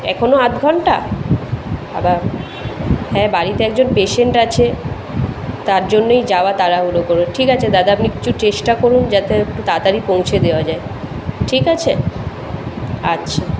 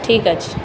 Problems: constant background noise